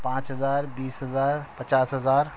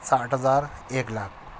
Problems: constant background noise